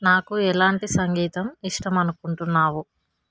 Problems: constant background noise